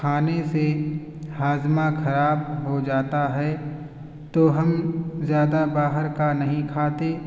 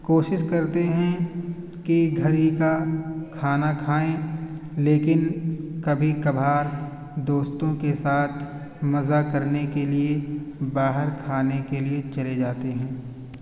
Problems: constant background noise